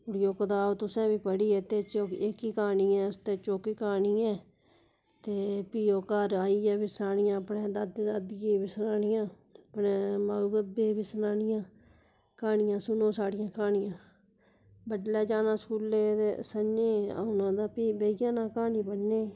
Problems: none marked